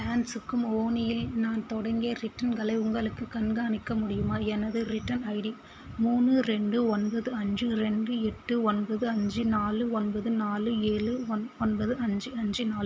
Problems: constant background noise